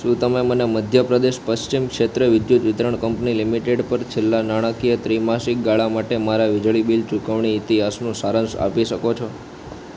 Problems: constant background noise